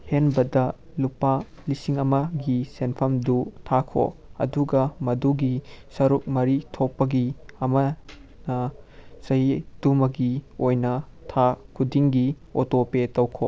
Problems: none marked